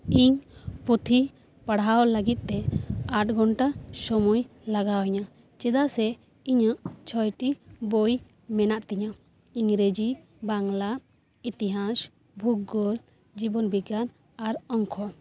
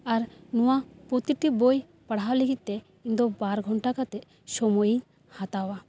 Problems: background sounds at intervals